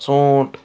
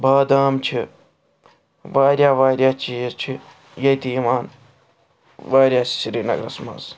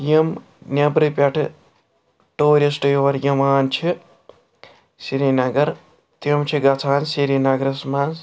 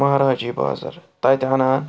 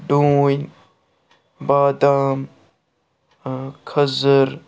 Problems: background sounds at intervals